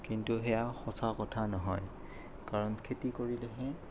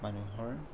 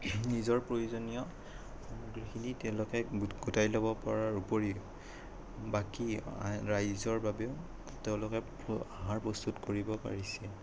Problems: none marked